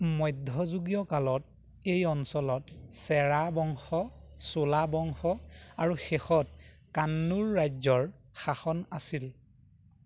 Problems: none marked